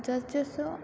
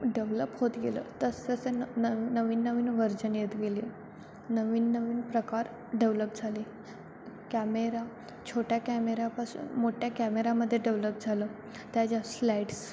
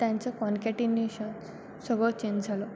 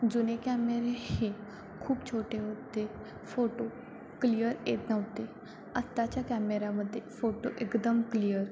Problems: constant background noise, background conversations at intervals